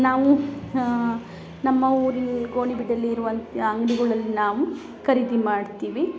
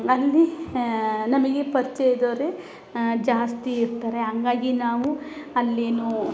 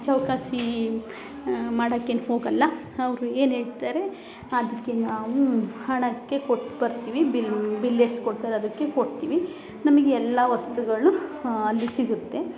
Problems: none marked